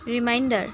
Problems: none marked